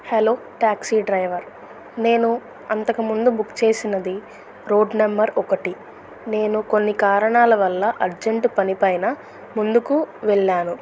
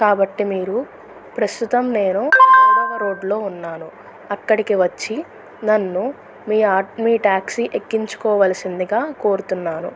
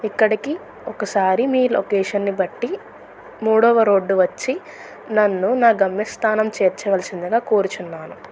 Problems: background sounds at intervals